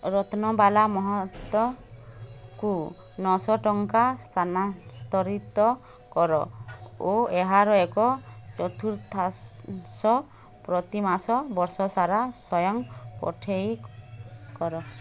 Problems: constant background noise